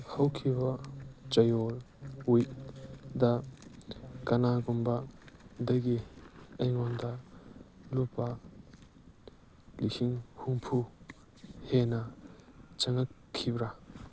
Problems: background sounds at intervals, background conversations at intervals